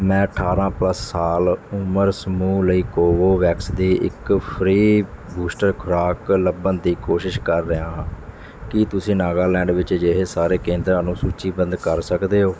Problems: none marked